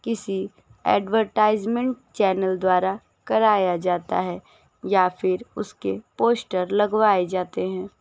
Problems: constant background noise